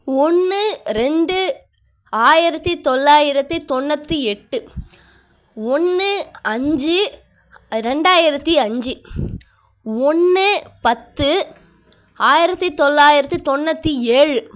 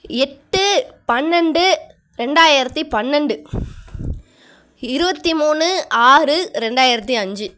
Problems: none marked